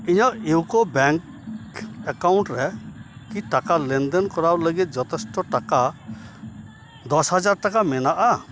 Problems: background sounds at intervals, continuous background conversations